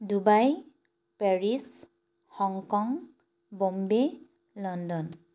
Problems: none marked